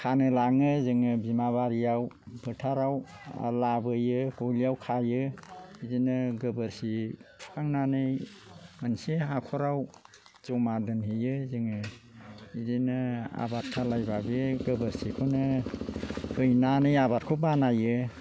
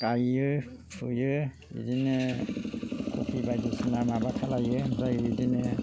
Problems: low volume